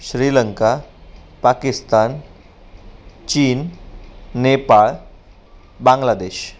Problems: none marked